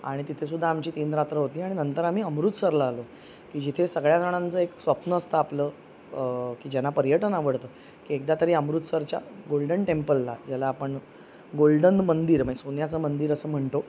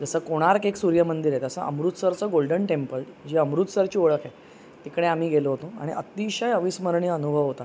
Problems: none marked